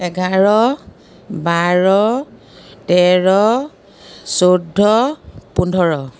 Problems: none marked